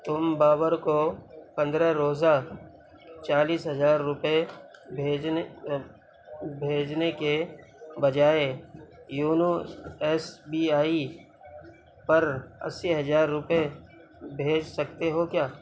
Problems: none marked